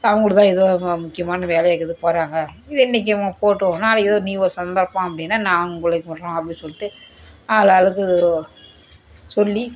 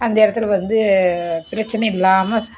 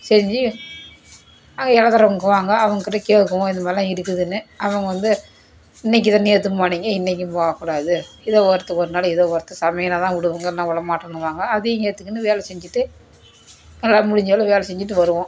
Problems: none marked